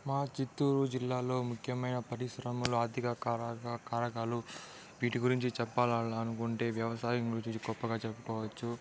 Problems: background sounds at intervals, background conversations at intervals